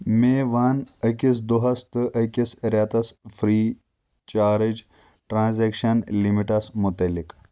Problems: constant background noise